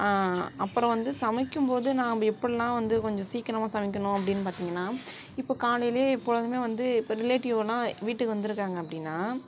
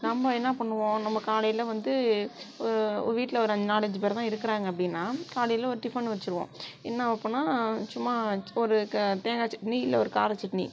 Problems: background sounds at intervals